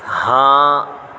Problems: constant background noise